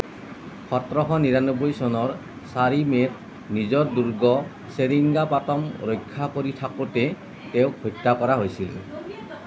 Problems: constant background noise